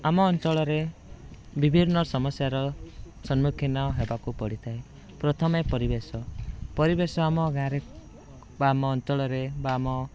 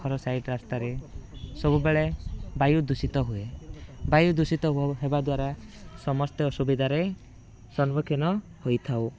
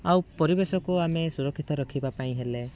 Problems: background sounds at intervals